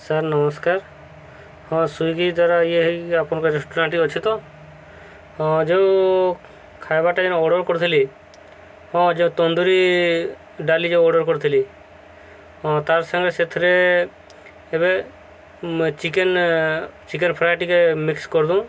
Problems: constant background noise